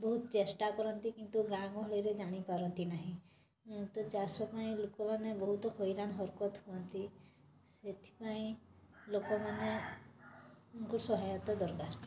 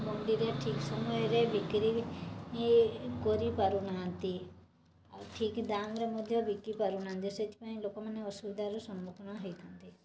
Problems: constant background noise